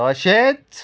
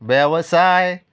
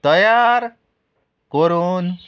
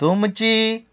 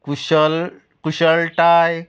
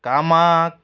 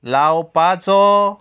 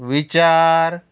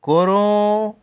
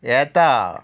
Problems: background sounds at intervals